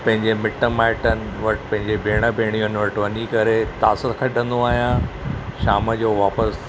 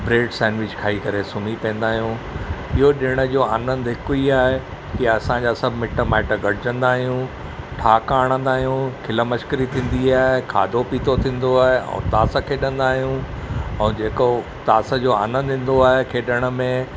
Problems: none marked